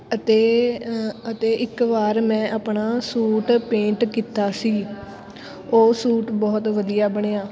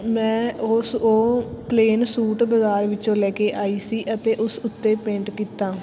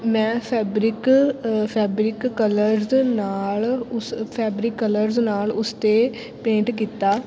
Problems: constant background noise, background conversations at intervals